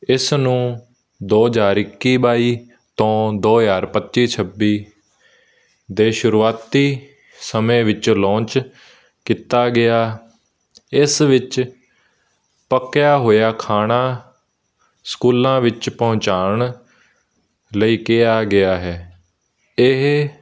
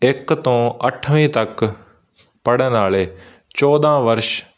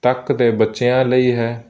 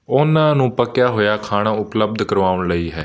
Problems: none marked